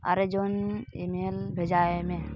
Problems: constant background noise